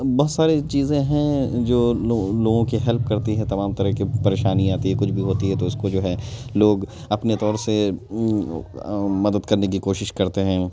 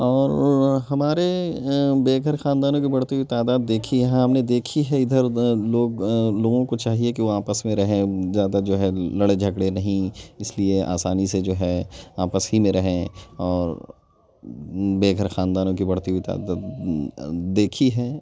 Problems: background sounds at intervals, background conversations at intervals